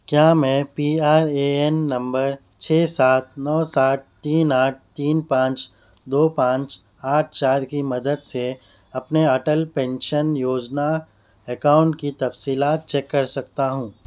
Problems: constant background noise